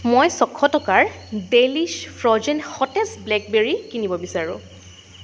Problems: constant background noise